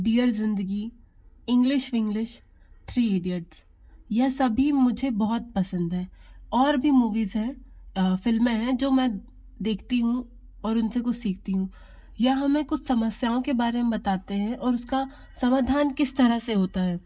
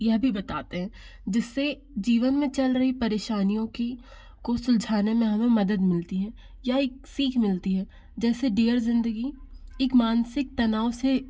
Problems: constant background noise